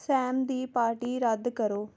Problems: none marked